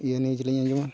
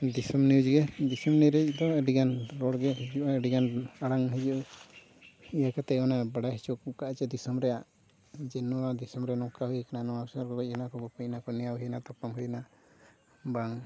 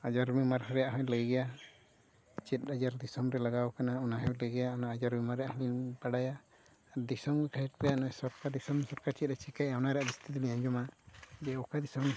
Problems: background sounds at intervals